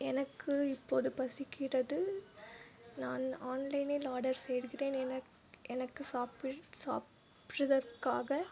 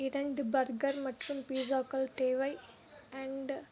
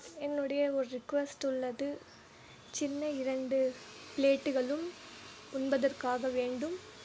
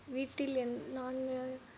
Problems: low volume